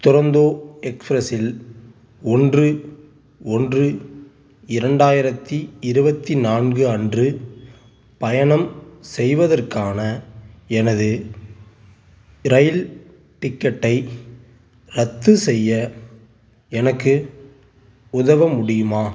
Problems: background sounds at intervals